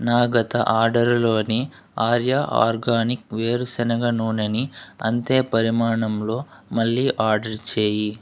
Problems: none marked